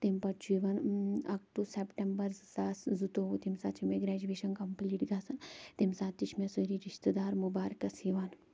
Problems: none marked